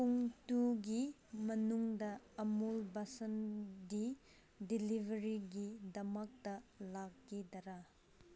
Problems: background sounds at intervals